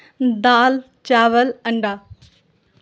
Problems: none marked